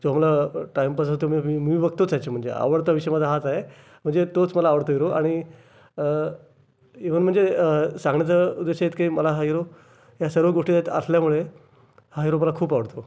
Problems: constant background noise